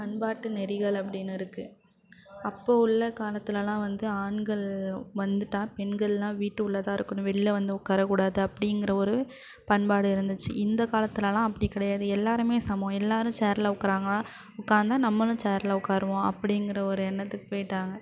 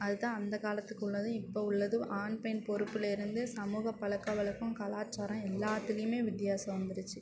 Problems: background sounds at intervals